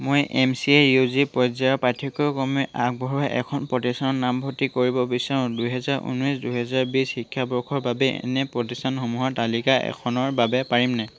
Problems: background sounds at intervals